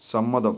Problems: constant background noise